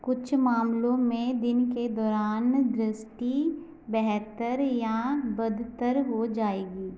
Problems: background sounds at intervals